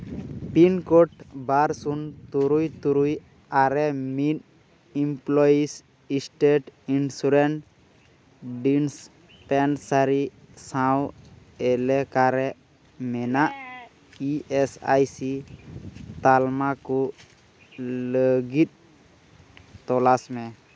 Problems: constant background noise